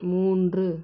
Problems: constant background noise